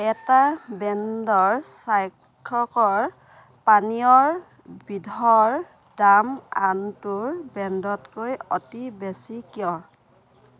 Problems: background sounds at intervals